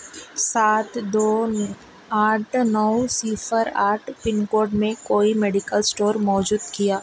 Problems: constant background noise